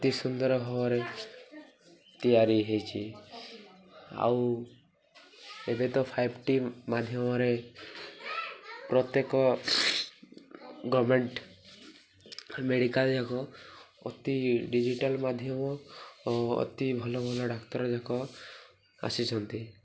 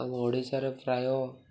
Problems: none marked